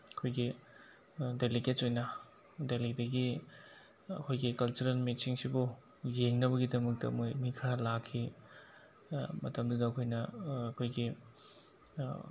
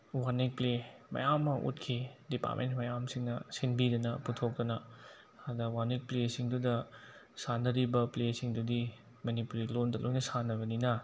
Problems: constant background noise